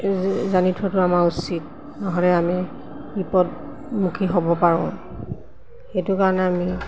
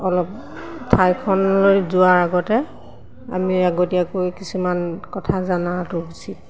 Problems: constant background noise, background conversations at intervals